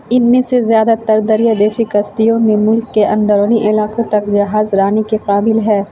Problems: constant background noise